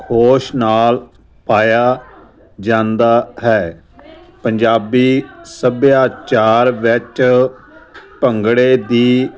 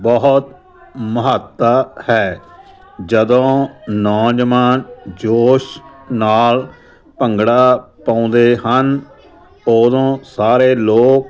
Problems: none marked